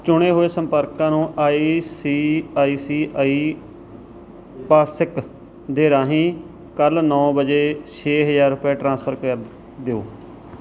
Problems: none marked